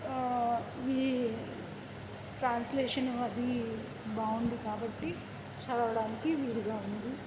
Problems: constant background noise